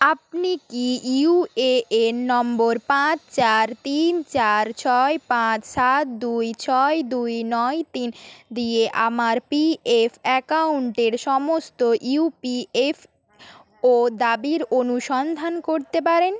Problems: background sounds at intervals